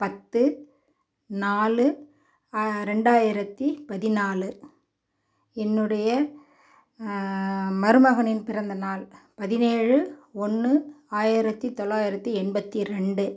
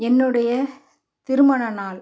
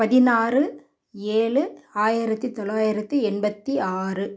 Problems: background sounds at intervals